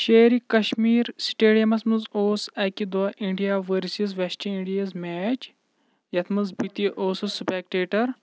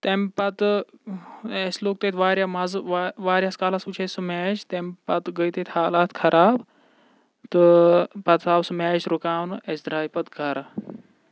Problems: none marked